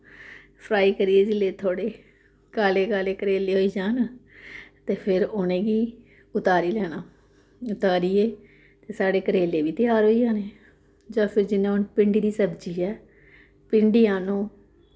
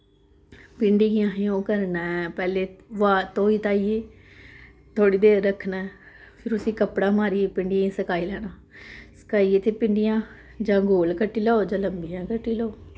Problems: none marked